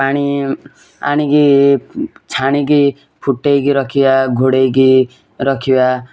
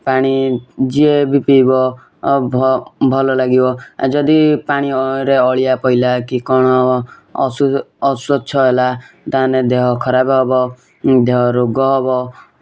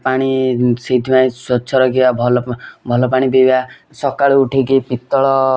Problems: constant background noise